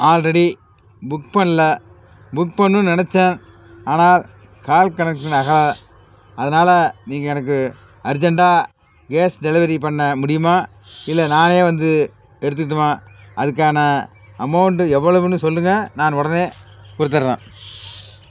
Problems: constant background noise